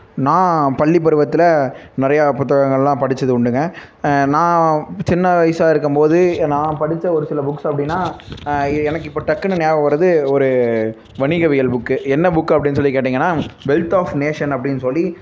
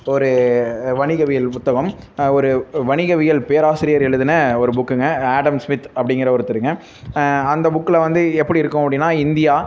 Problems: constant background noise